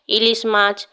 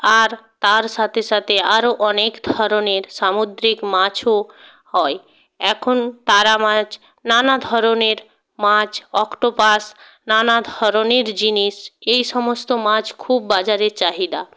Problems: constant background noise